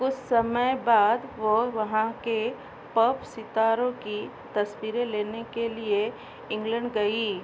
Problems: none marked